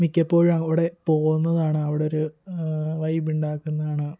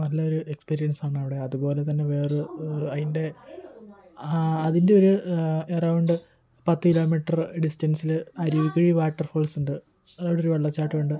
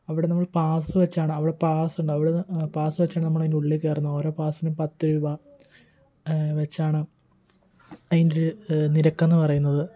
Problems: continuous background conversations, low volume